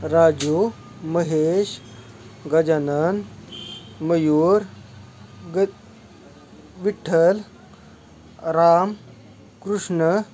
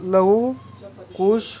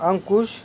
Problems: constant background noise, background conversations at intervals